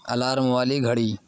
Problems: constant background noise